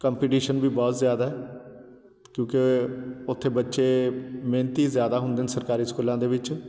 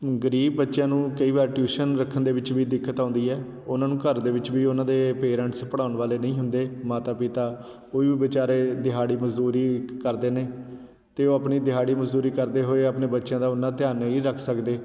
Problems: none marked